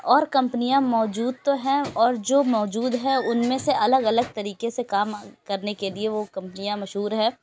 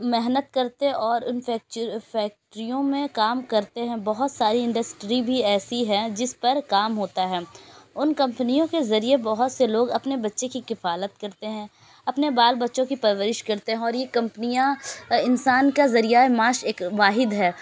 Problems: constant background noise